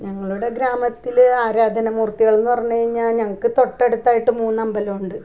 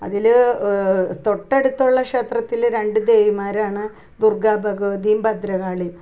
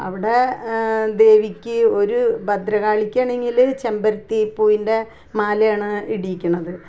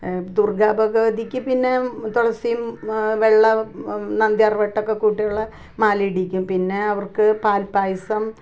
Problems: none marked